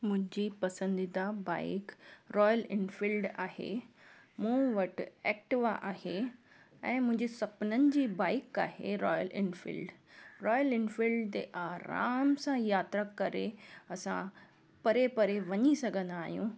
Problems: none marked